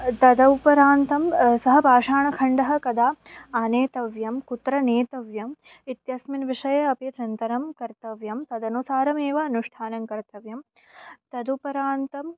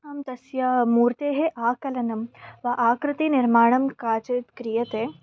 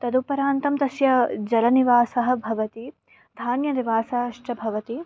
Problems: background sounds at intervals